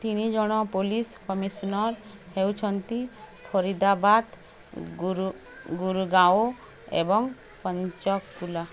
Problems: constant background noise